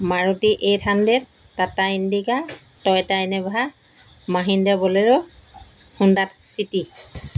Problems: background sounds at intervals